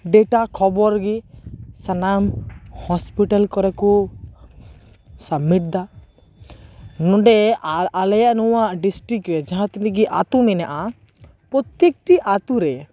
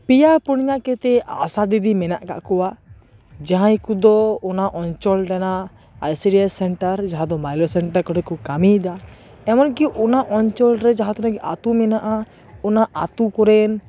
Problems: constant background noise, continuous background conversations